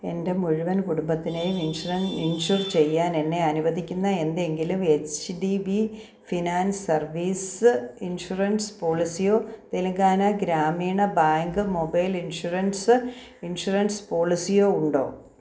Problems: background sounds at intervals